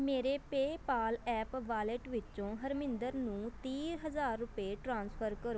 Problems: constant background noise